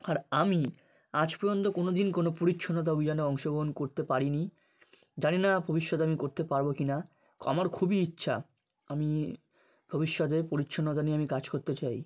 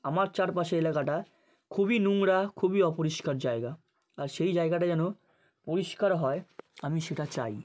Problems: none marked